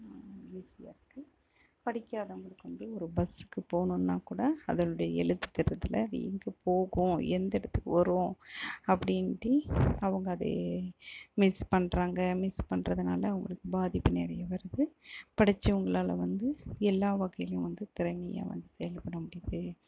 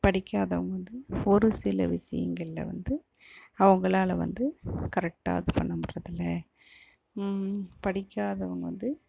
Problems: low volume